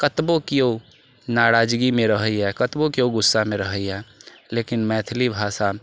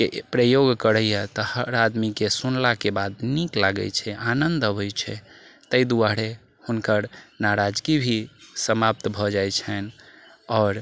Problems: background sounds at intervals